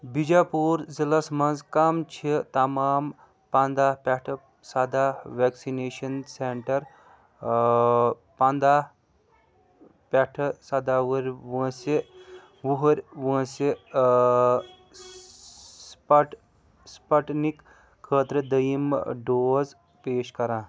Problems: background sounds at intervals, background conversations at intervals